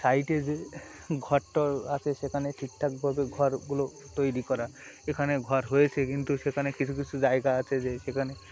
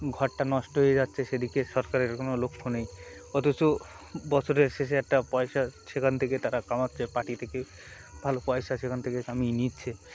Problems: constant background noise